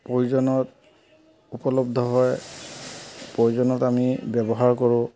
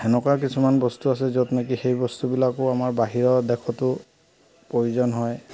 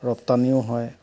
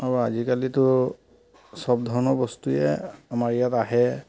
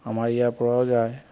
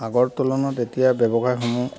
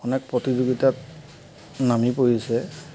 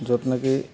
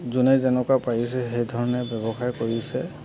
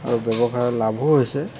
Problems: constant background noise